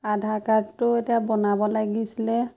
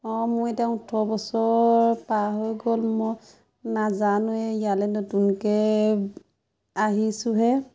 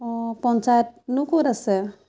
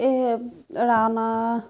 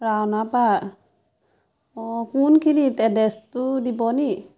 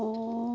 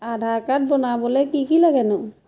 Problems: constant background noise, background conversations at intervals